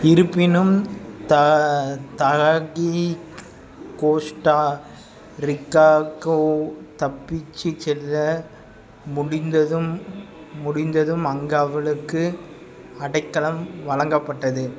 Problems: background sounds at intervals